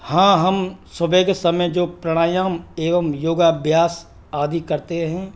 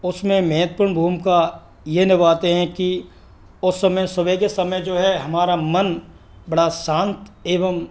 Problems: none marked